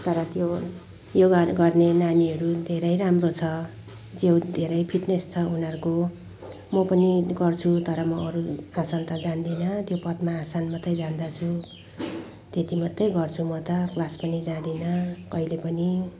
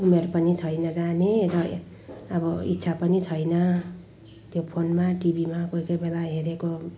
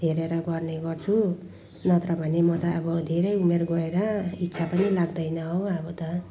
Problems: background sounds at intervals, background conversations at intervals